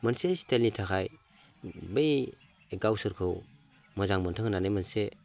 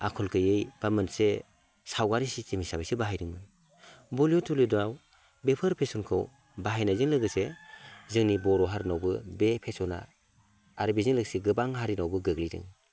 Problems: none marked